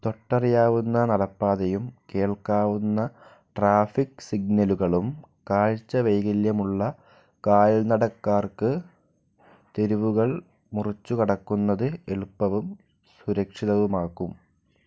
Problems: low volume